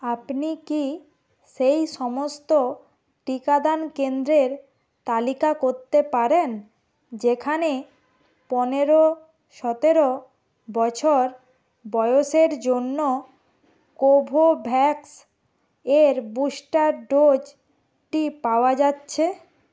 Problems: constant background noise